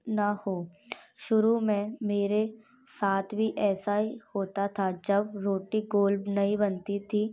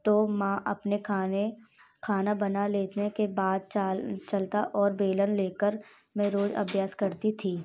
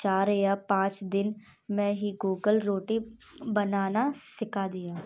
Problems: none marked